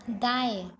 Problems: constant background noise, background conversations at intervals